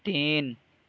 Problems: constant background noise